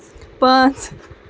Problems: constant background noise, continuous background conversations